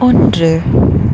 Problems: background sounds at intervals